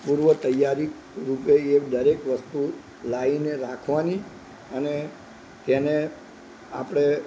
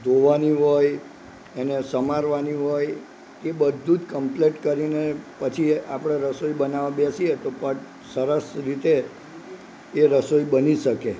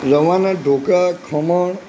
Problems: none marked